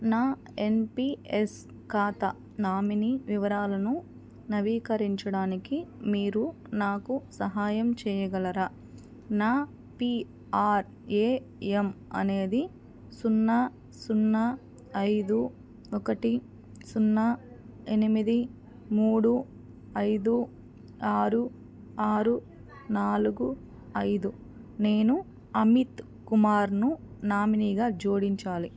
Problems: none marked